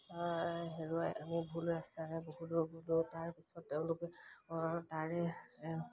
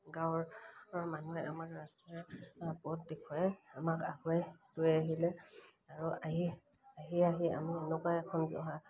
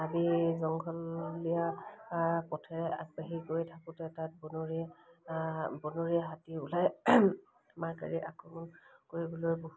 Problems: background sounds at intervals